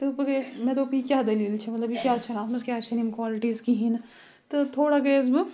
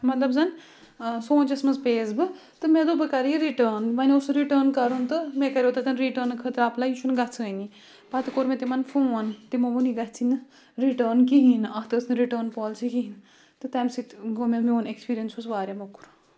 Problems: continuous background conversations